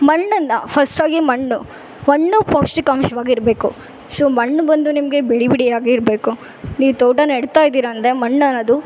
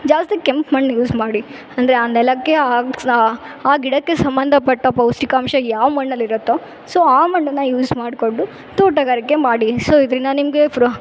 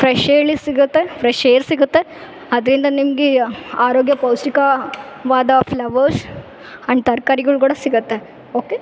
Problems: none marked